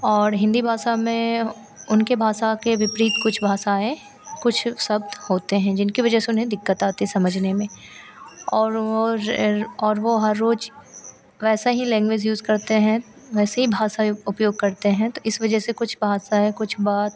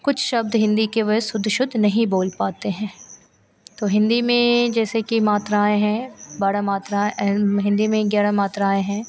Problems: constant background noise